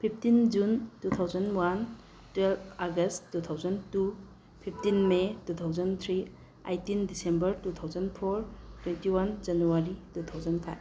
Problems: low volume